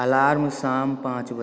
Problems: echo